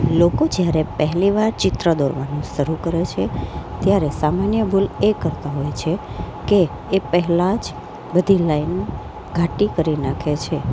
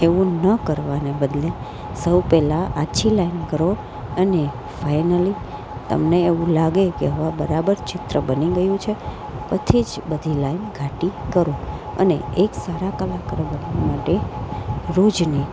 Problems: none marked